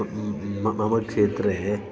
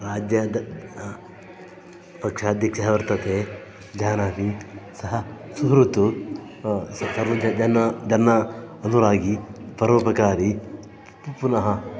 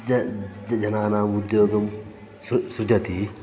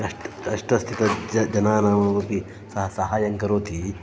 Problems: constant background noise, continuous background conversations